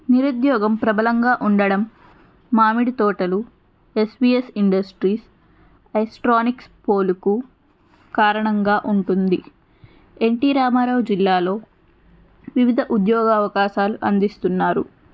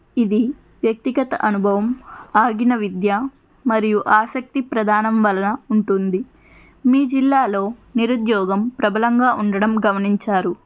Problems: background sounds at intervals